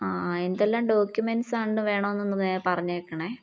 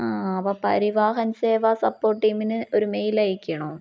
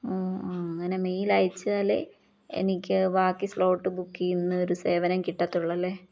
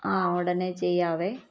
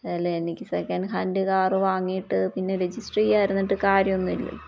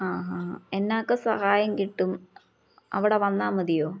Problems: none marked